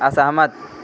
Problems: constant background noise